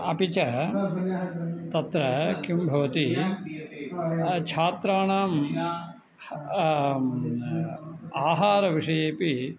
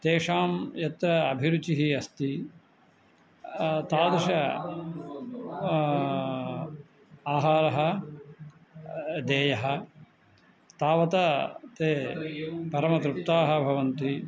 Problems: none marked